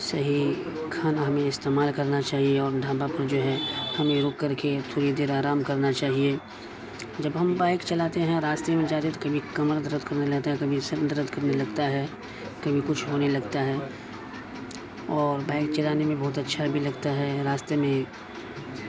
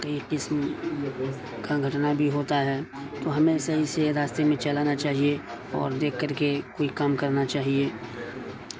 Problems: constant background noise